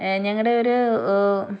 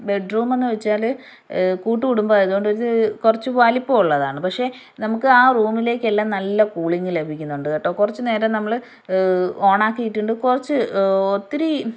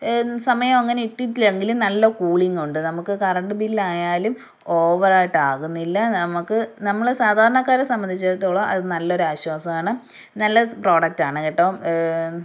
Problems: none marked